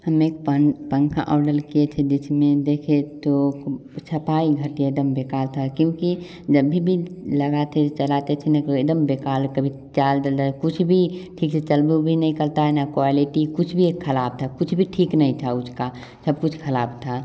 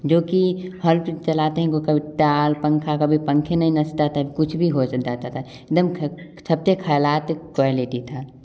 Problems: none marked